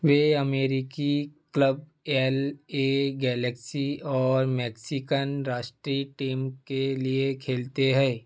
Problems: none marked